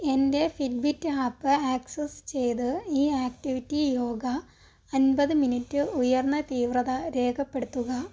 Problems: low volume